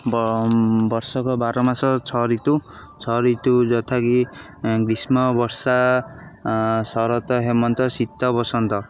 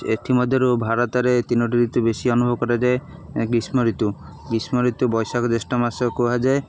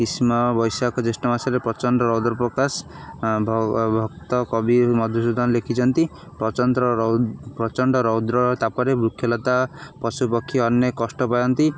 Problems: none marked